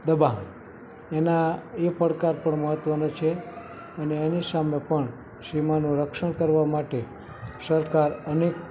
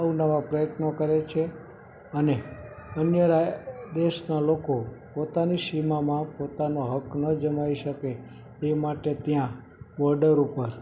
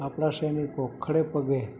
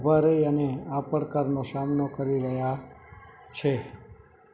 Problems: background sounds at intervals, continuous background conversations